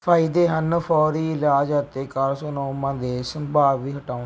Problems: background sounds at intervals